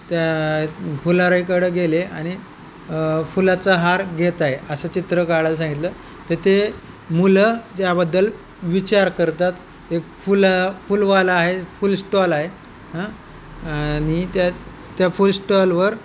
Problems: constant background noise